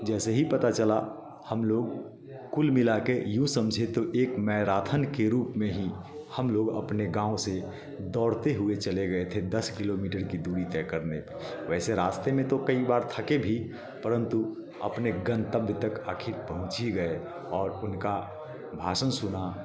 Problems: continuous background conversations